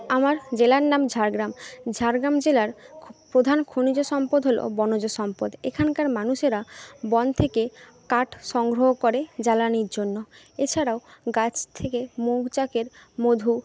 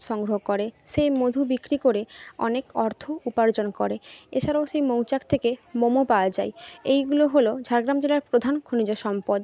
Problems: background conversations at intervals